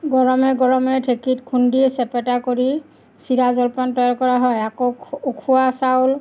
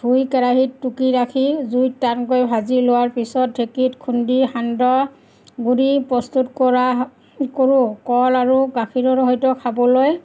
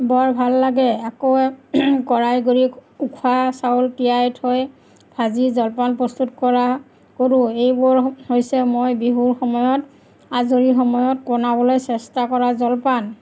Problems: none marked